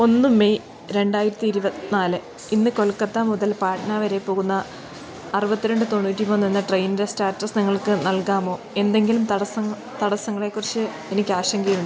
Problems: constant background noise